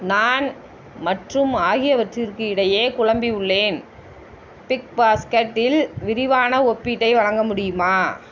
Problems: constant background noise